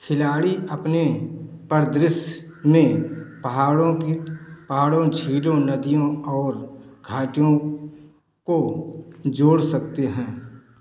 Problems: none marked